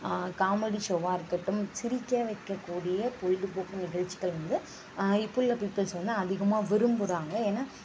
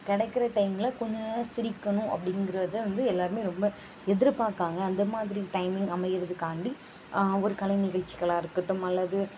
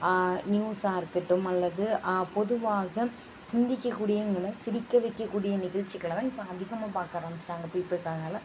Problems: constant background noise